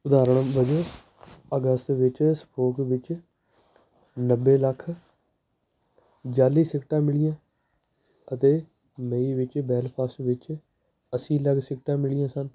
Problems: background sounds at intervals